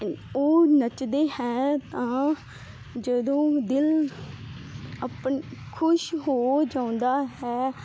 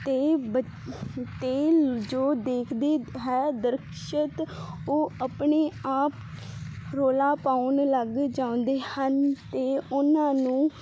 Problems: none marked